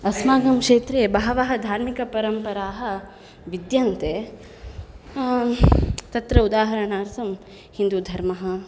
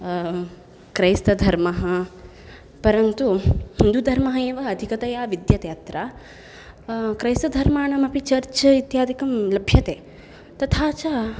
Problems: none marked